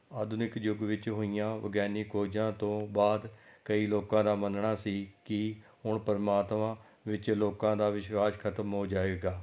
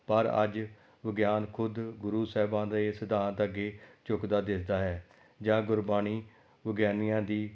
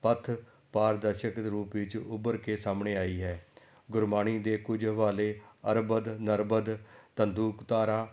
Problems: background sounds at intervals